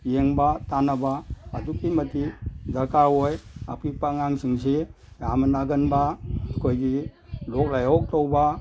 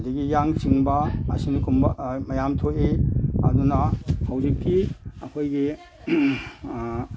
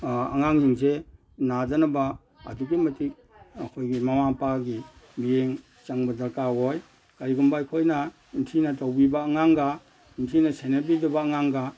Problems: background sounds at intervals